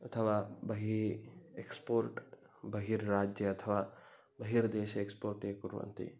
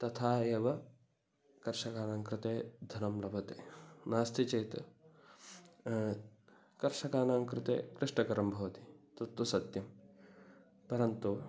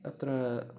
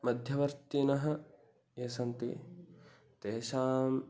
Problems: none marked